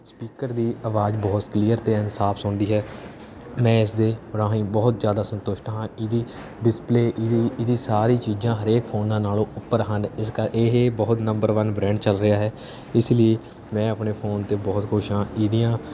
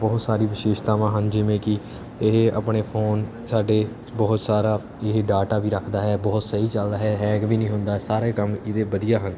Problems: background sounds at intervals